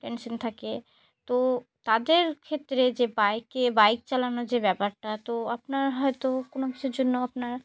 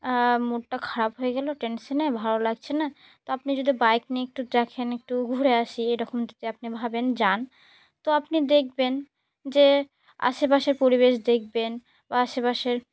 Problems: none marked